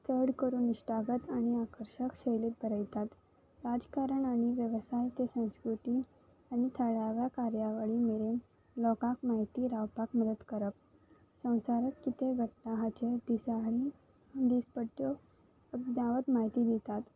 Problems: background sounds at intervals